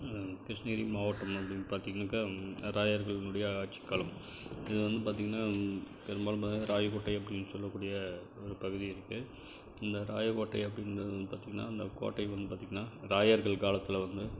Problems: none marked